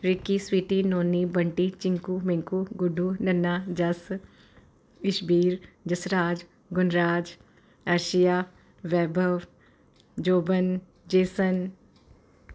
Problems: constant background noise